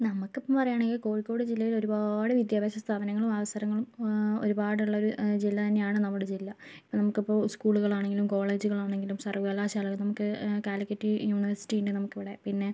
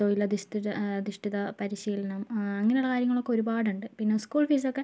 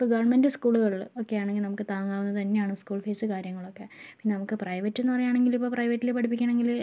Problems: low volume